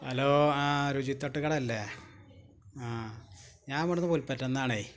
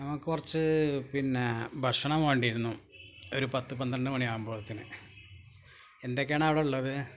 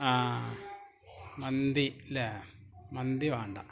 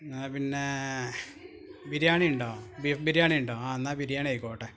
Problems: background sounds at intervals